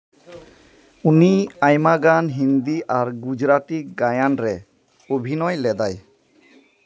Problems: none marked